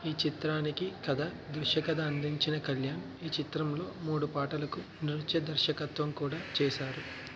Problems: low volume